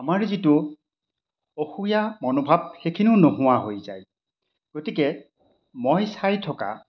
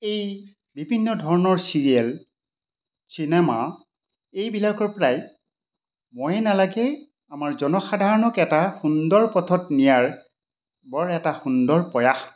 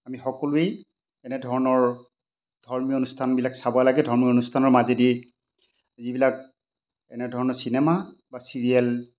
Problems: none marked